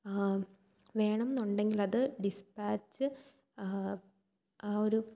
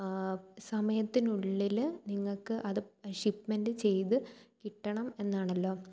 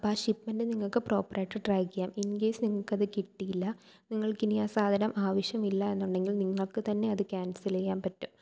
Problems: low volume